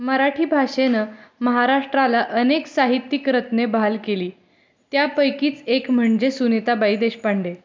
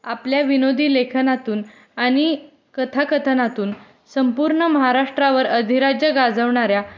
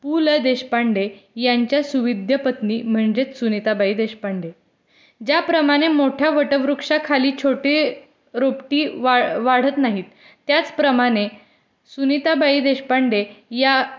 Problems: constant background noise